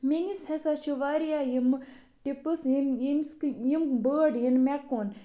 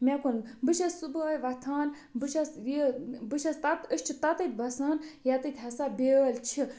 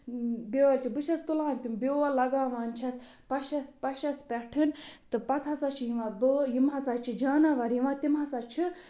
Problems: none marked